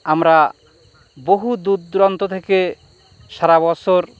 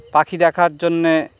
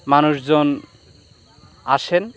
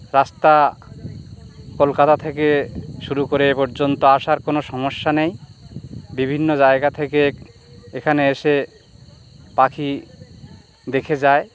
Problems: constant background noise, background conversations at intervals